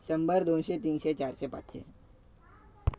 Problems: background sounds at intervals, background conversations at intervals